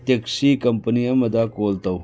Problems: low volume